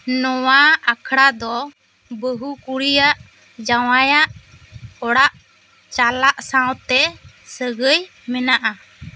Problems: none marked